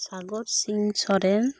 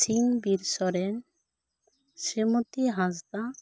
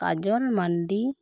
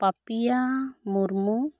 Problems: none marked